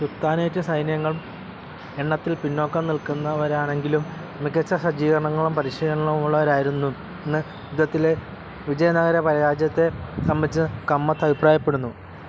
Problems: constant background noise